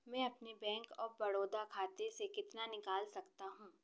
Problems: none marked